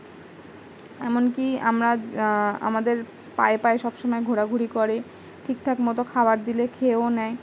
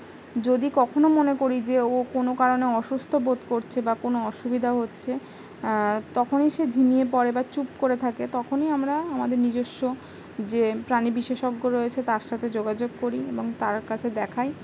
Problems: none marked